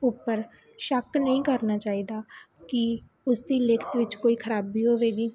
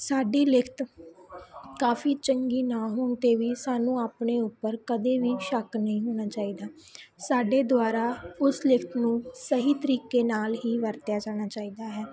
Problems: continuous background conversations